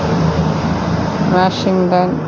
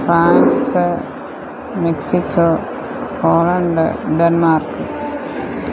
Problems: constant background noise